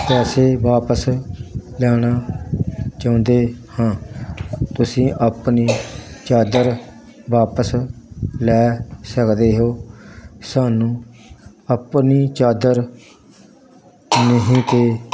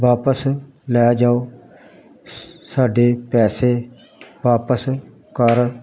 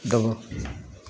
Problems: constant background noise